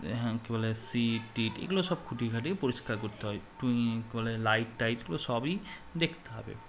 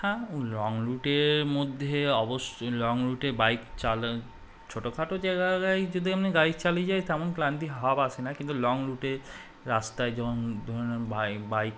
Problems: none marked